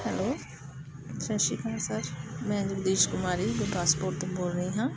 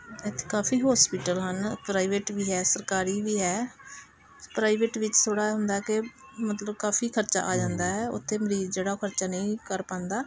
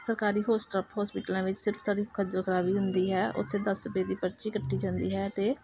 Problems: constant background noise, background conversations at intervals